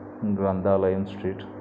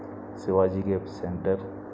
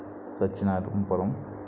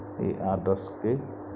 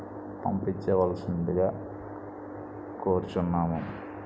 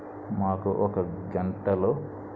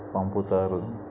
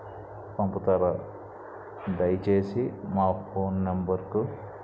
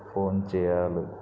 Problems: constant background noise, low volume